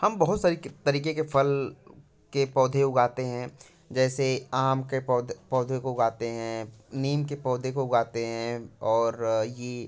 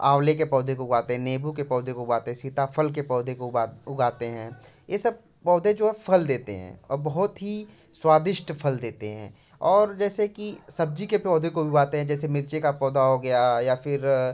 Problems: none marked